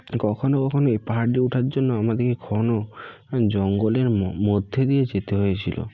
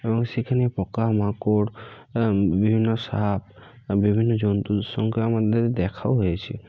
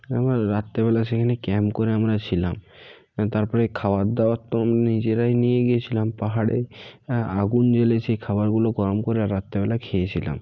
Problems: none marked